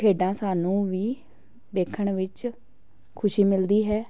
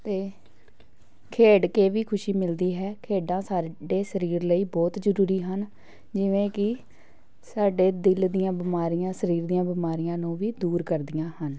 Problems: background sounds at intervals, background conversations at intervals